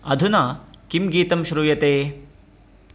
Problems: constant background noise